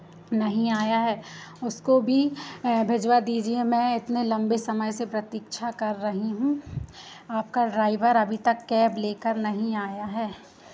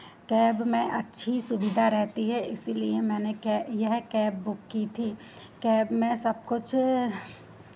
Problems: constant background noise